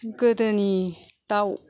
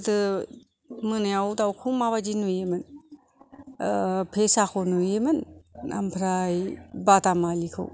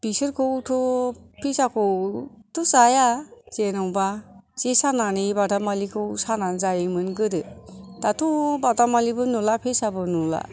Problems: none marked